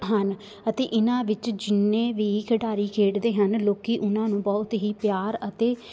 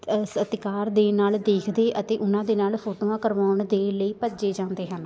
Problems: continuous background conversations